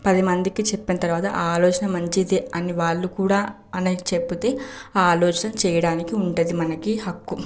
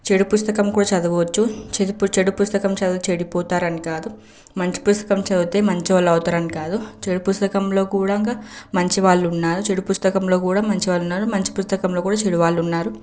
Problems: background sounds at intervals